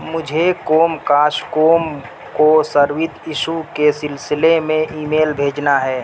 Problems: constant background noise